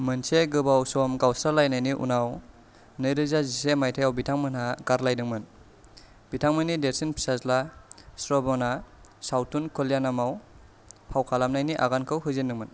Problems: none marked